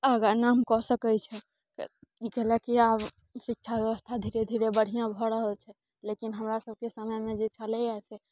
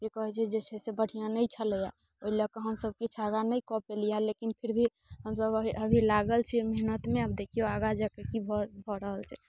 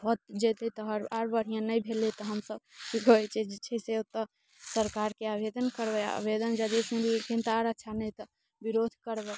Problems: none marked